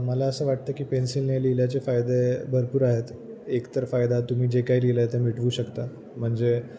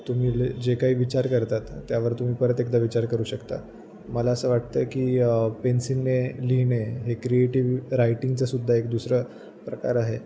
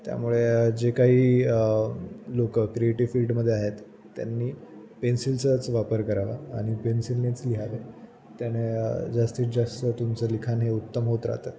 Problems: constant background noise